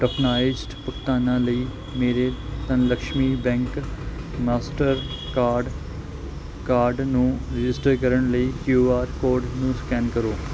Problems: none marked